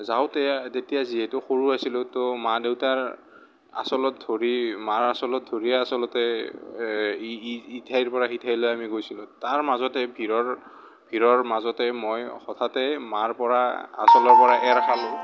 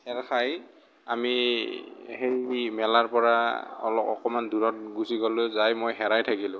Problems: none marked